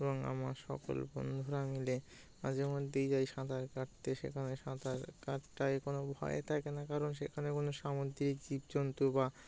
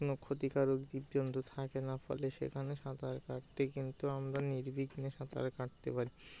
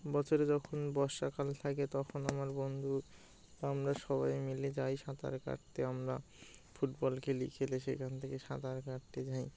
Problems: none marked